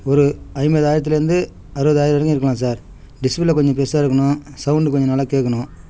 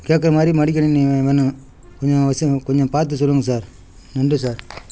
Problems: background sounds at intervals